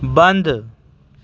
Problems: background sounds at intervals